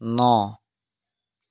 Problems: none marked